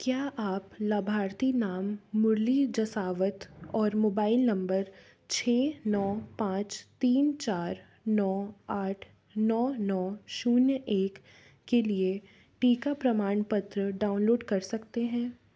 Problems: none marked